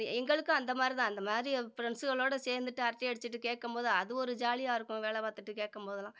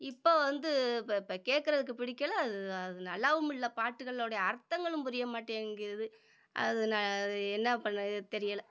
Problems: none marked